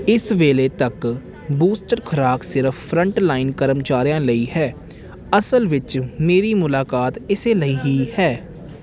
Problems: background sounds at intervals